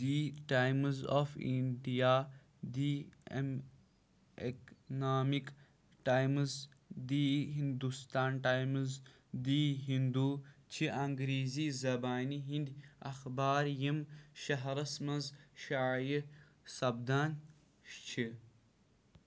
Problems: none marked